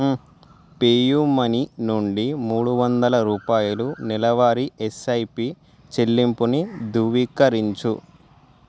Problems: background sounds at intervals